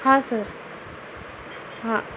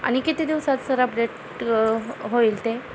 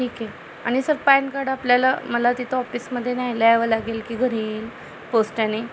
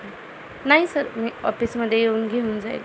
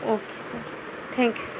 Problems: constant background noise